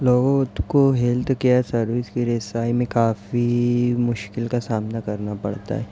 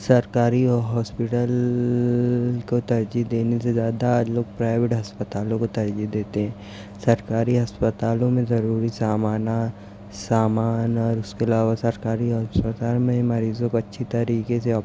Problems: none marked